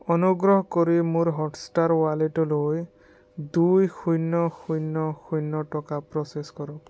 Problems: none marked